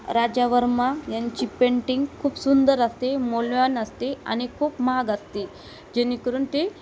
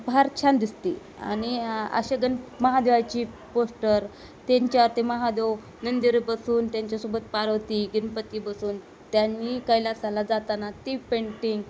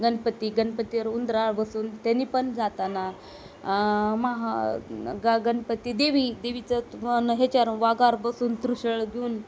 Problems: constant background noise